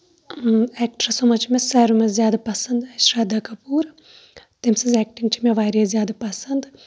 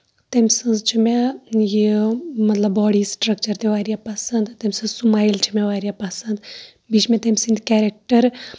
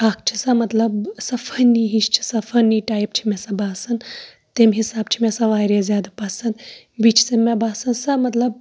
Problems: none marked